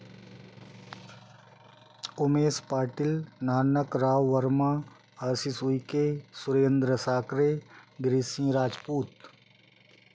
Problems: background sounds at intervals